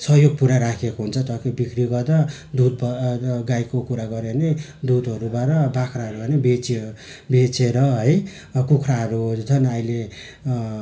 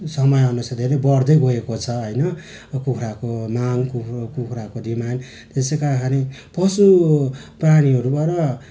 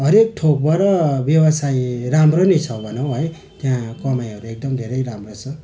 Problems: constant background noise